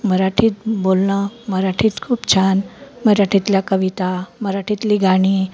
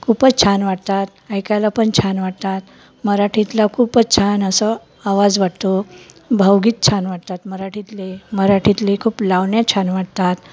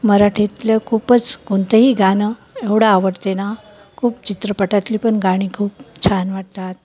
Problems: constant background noise